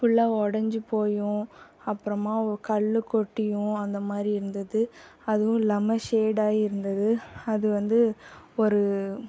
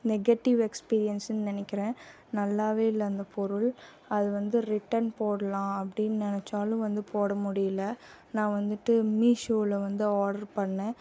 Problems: constant background noise